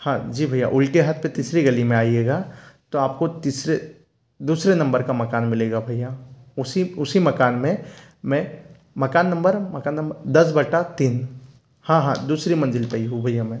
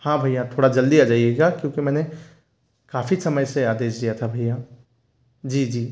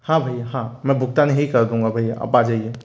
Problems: none marked